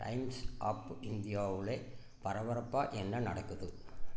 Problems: none marked